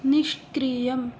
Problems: none marked